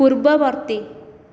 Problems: continuous background conversations